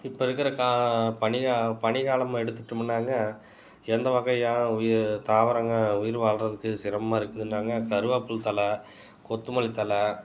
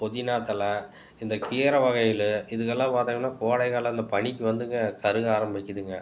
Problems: background sounds at intervals